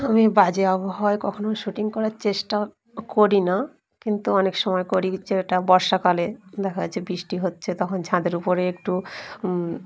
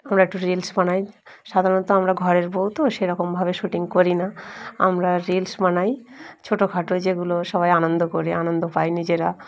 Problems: none marked